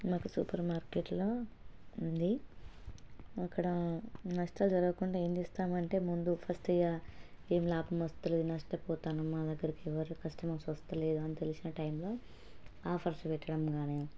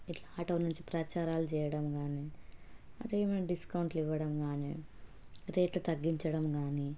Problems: low volume